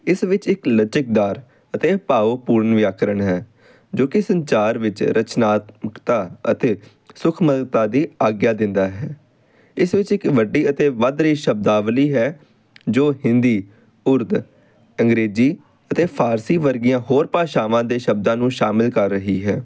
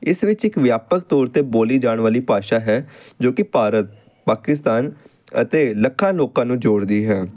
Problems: constant background noise